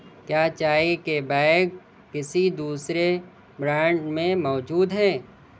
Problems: none marked